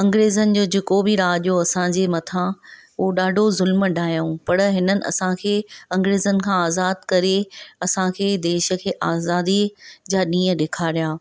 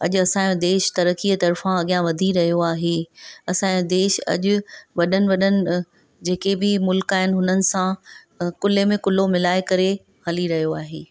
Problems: none marked